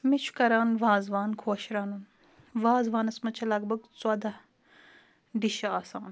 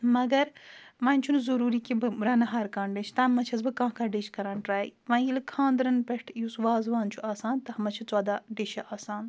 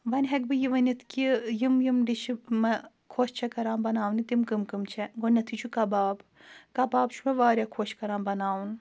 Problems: none marked